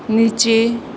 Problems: none marked